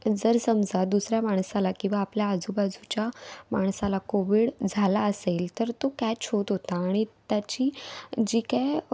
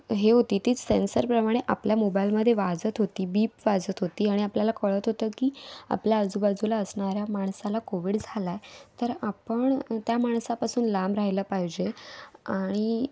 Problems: background sounds at intervals